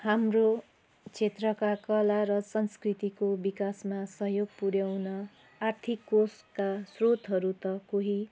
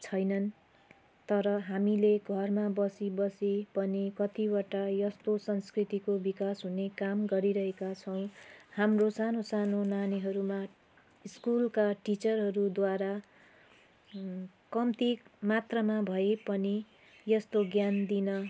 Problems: constant background noise